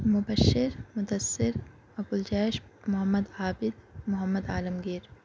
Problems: background sounds at intervals